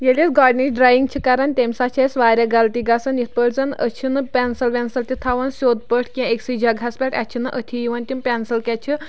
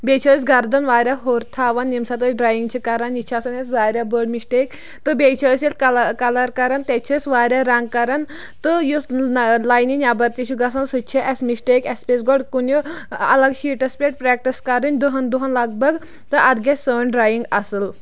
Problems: none marked